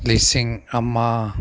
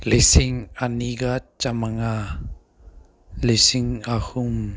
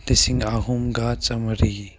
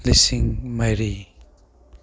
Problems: none marked